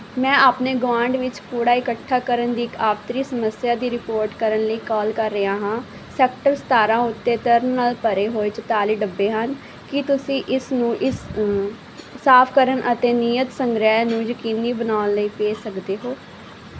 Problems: background conversations at intervals